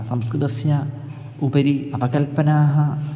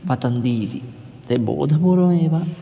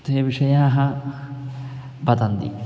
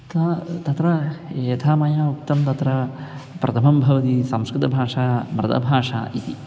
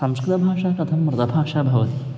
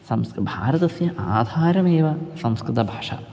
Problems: background sounds at intervals